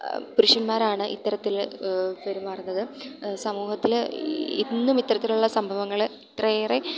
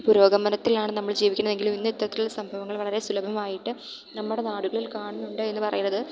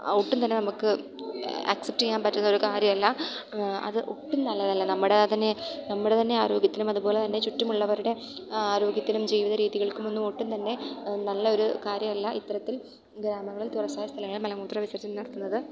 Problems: background sounds at intervals